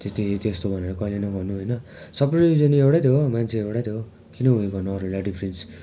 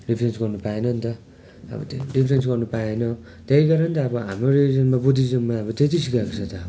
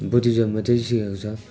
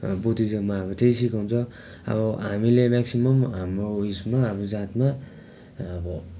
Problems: constant background noise